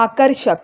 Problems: constant background noise